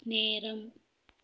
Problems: none marked